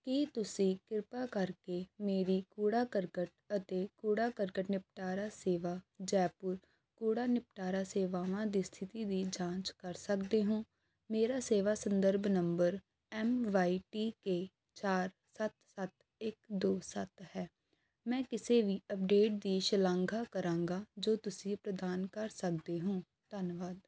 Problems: none marked